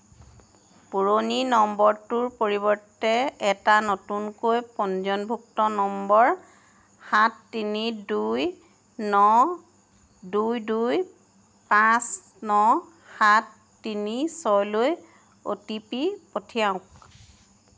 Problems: constant background noise